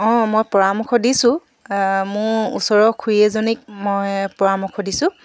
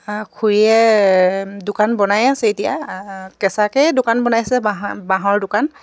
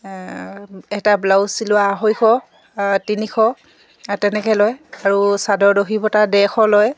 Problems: background sounds at intervals